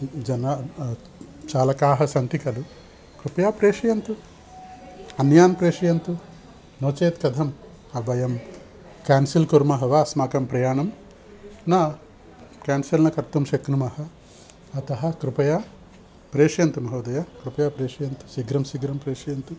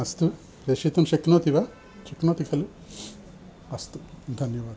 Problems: none marked